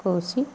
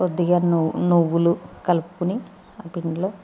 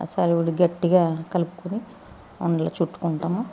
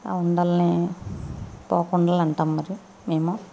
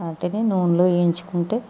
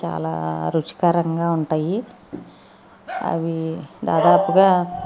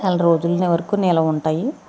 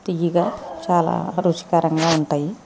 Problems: constant background noise